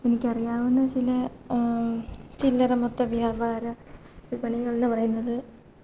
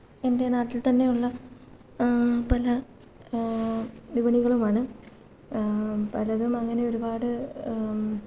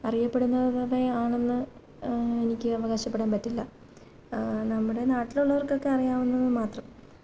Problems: low volume